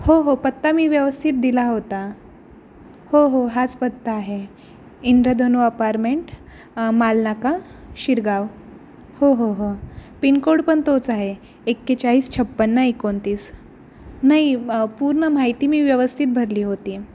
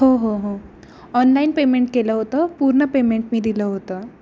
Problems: none marked